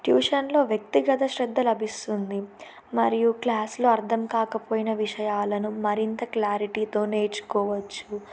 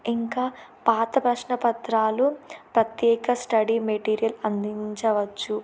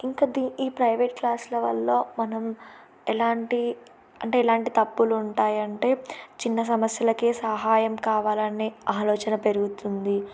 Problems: none marked